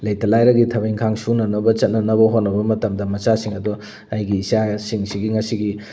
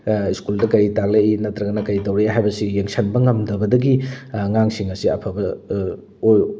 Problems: none marked